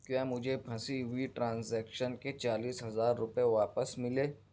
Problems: none marked